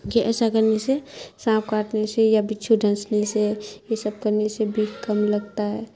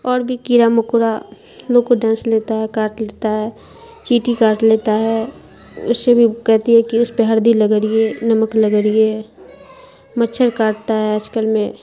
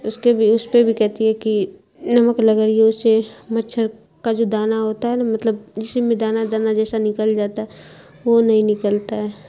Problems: constant background noise